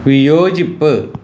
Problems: constant background noise